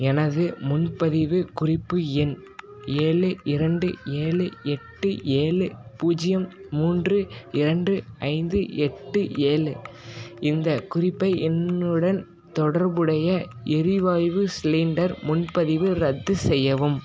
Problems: constant background noise, continuous background conversations